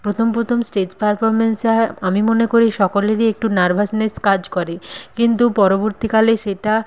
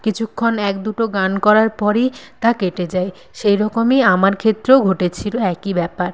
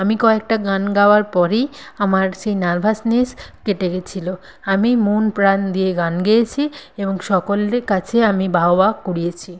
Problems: none marked